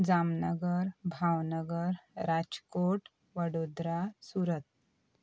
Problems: none marked